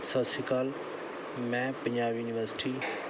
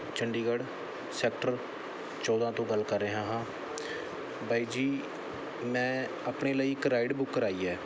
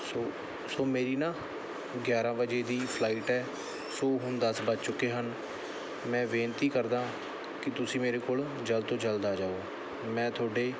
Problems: none marked